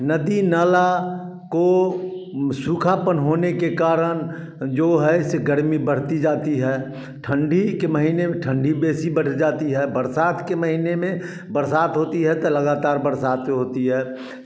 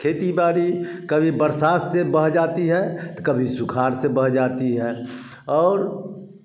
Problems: constant background noise, continuous background conversations